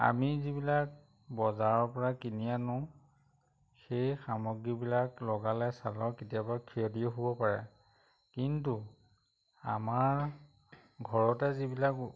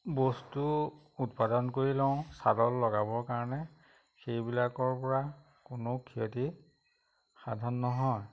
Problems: none marked